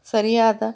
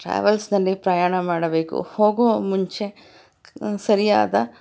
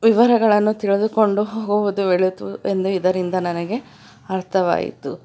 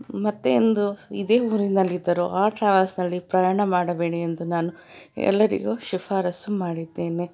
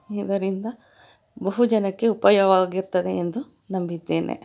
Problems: none marked